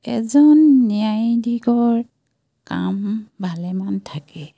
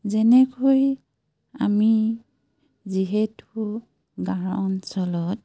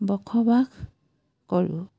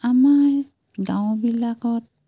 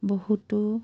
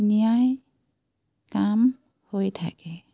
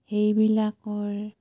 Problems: constant background noise